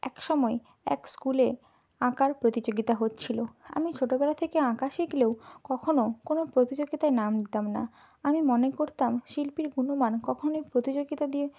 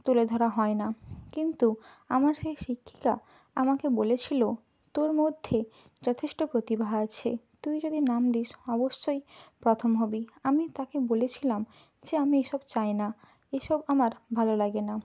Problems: none marked